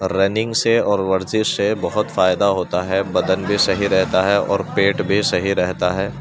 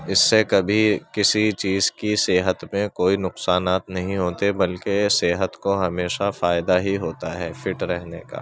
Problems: constant background noise, continuous background conversations